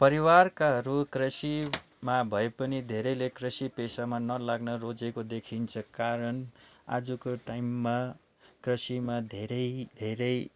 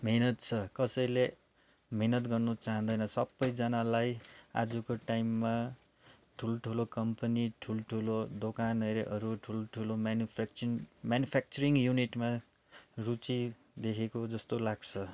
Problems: background sounds at intervals, background conversations at intervals